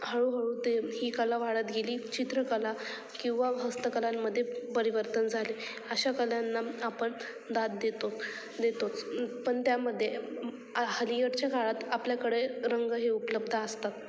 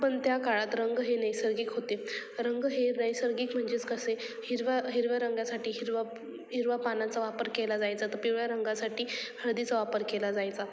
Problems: constant background noise, background conversations at intervals